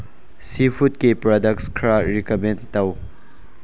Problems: none marked